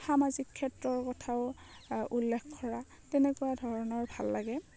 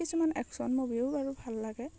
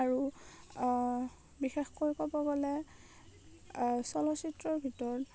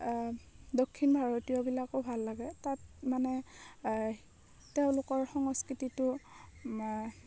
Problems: none marked